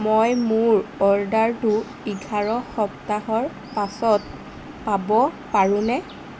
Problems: constant background noise